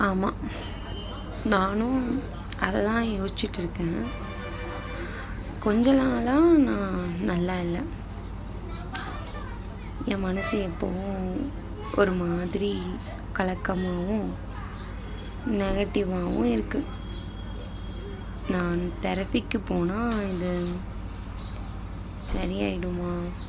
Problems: constant background noise, background conversations at intervals